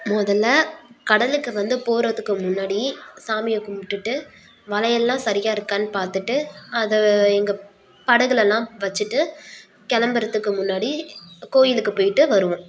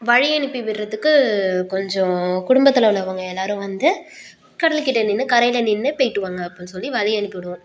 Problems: none marked